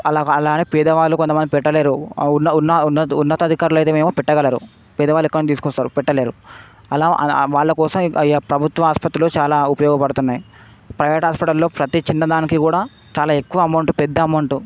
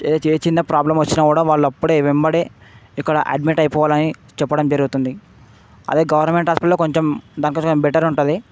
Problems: constant background noise